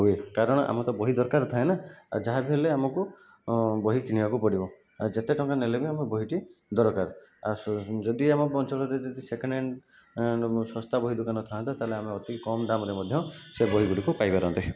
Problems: background sounds at intervals